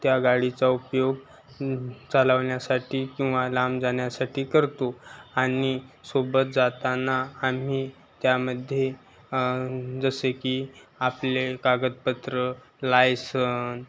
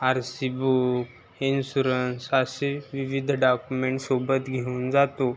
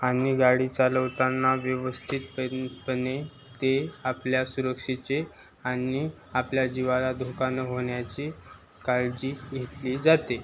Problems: constant background noise, background conversations at intervals